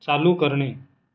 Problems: none marked